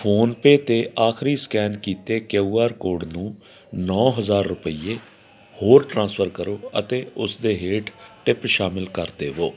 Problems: none marked